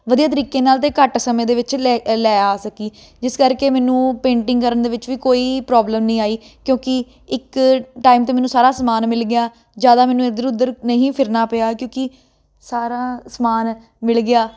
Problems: constant background noise